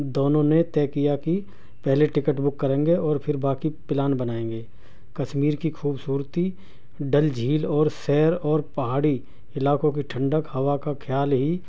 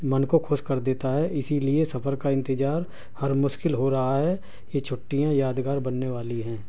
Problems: none marked